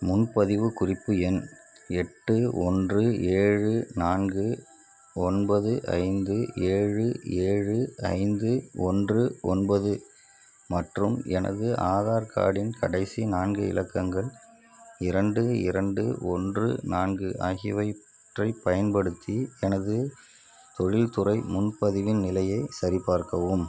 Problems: background sounds at intervals